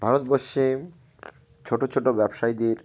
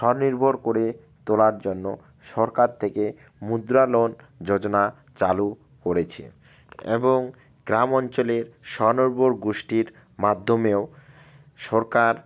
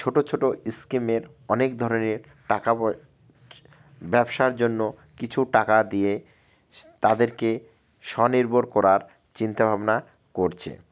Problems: none marked